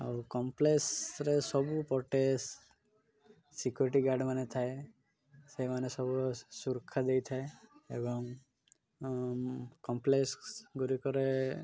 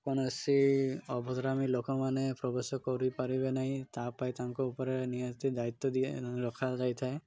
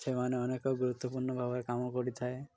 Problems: none marked